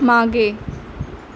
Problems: none marked